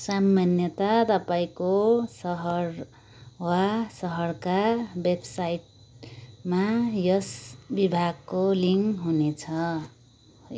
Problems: none marked